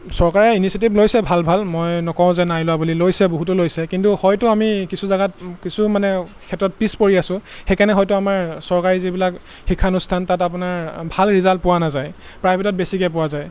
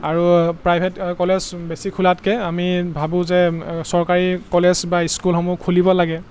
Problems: constant background noise